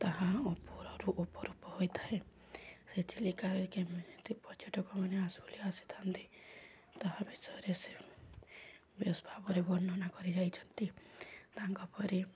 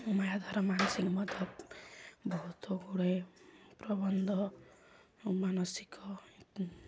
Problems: low volume